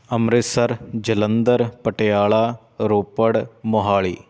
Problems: constant background noise